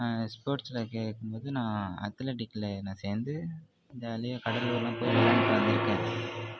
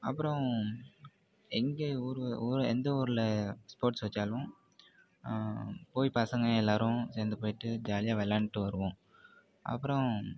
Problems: background sounds at intervals